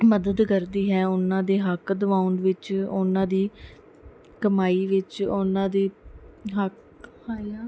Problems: none marked